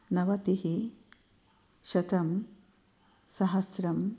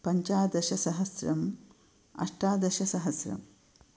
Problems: none marked